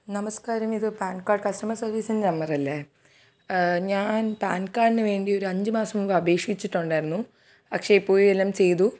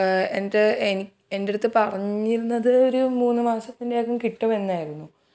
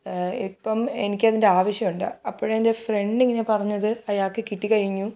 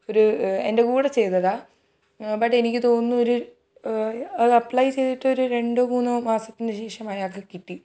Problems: none marked